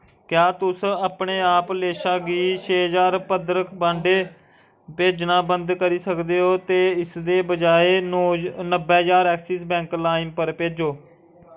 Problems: background sounds at intervals